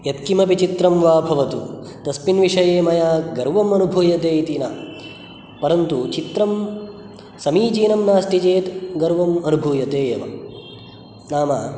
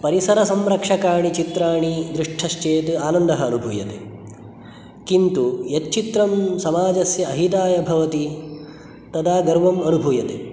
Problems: none marked